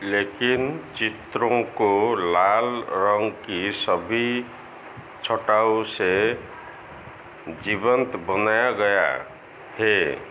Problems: none marked